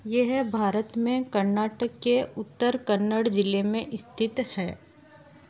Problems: constant background noise